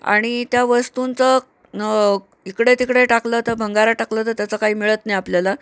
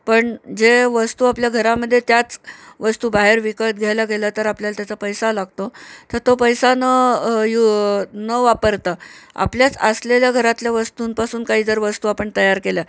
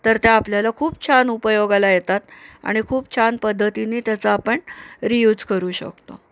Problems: constant background noise